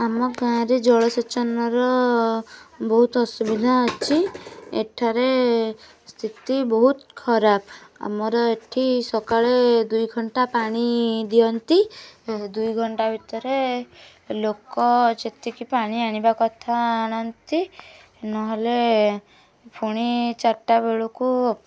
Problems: constant background noise, continuous background conversations